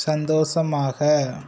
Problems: none marked